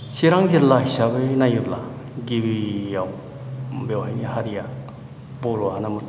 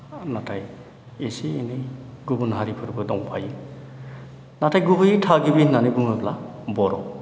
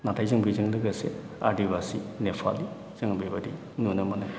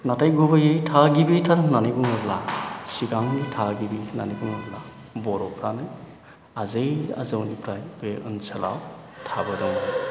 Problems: constant background noise